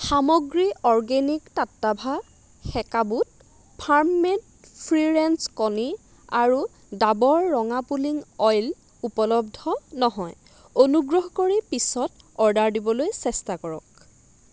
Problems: constant background noise